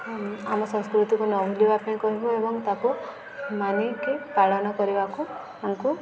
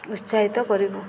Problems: none marked